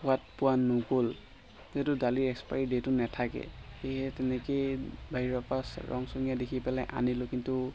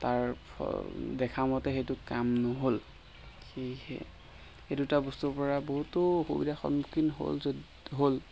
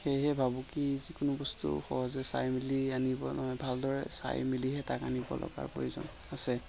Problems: constant background noise